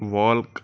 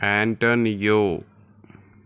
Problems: none marked